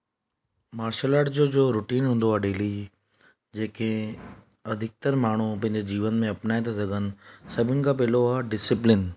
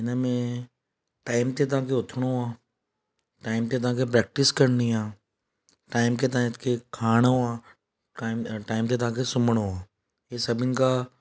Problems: none marked